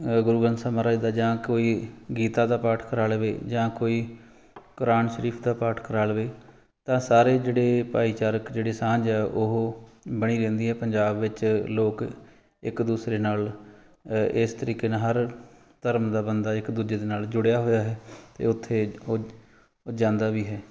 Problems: background sounds at intervals